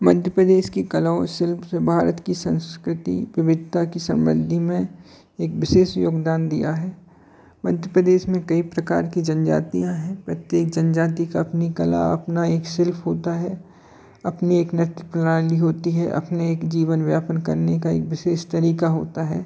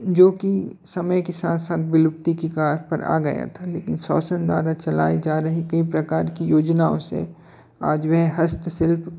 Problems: constant background noise, continuous background conversations